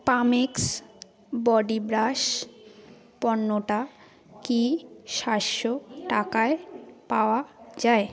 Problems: background conversations at intervals